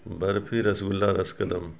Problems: background sounds at intervals